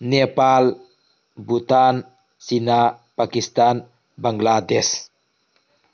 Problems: background sounds at intervals